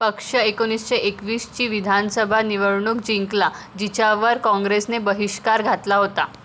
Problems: background sounds at intervals